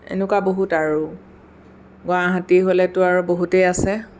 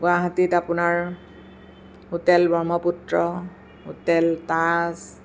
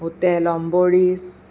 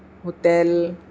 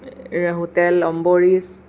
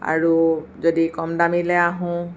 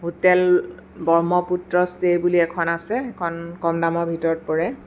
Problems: none marked